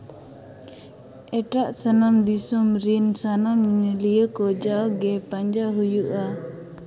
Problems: constant background noise, echo